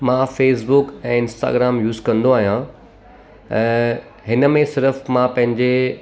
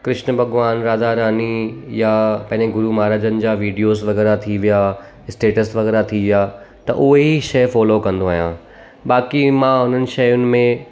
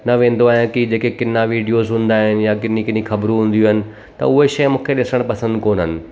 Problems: background sounds at intervals